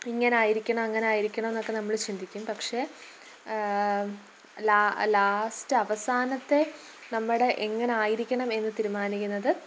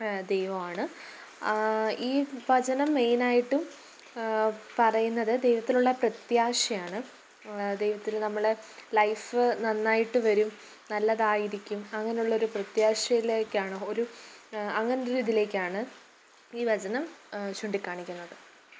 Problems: background sounds at intervals